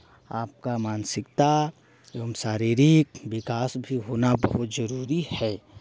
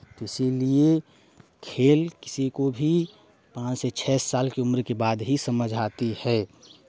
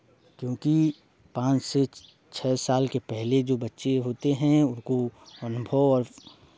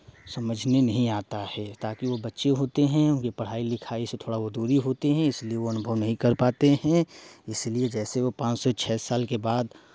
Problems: constant background noise